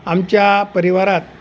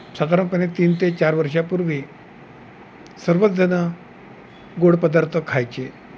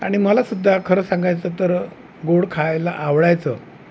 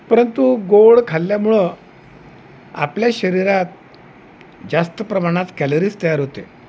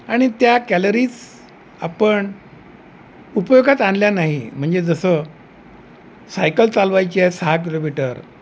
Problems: none marked